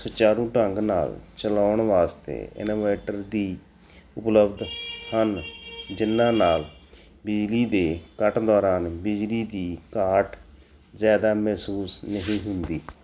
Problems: background sounds at intervals